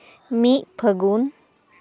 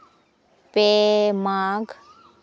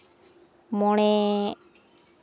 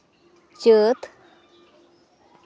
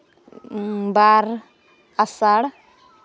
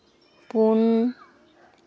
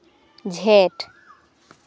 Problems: none marked